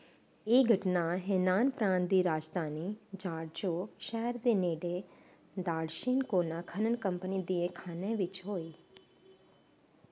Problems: constant background noise